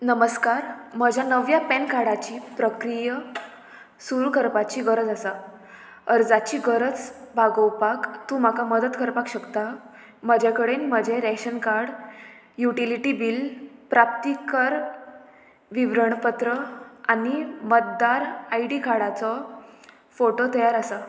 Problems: none marked